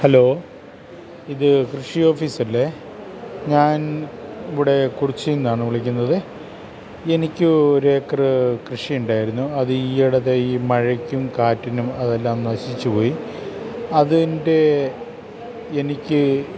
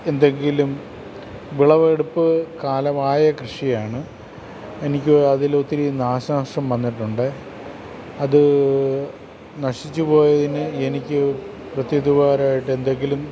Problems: constant background noise